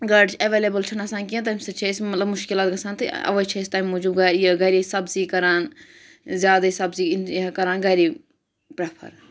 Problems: none marked